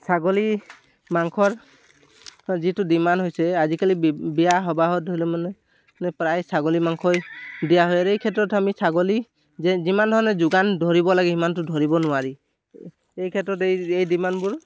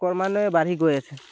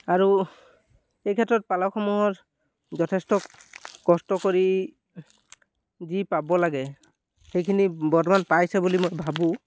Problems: none marked